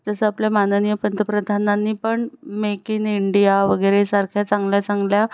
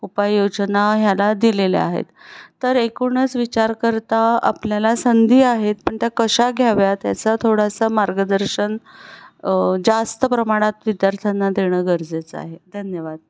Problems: background sounds at intervals